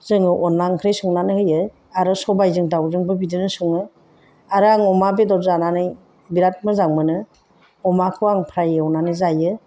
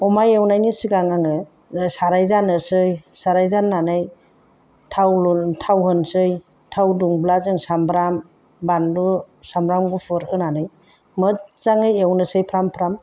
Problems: none marked